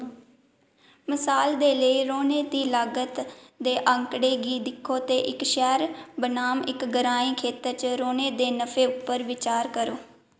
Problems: echo